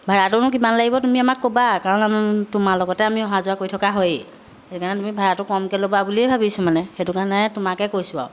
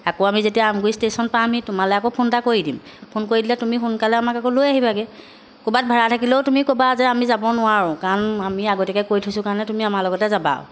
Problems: background sounds at intervals